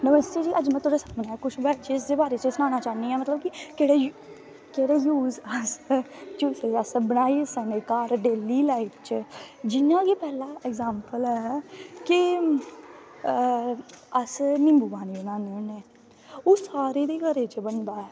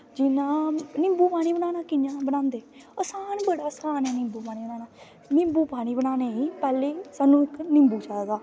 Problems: constant background noise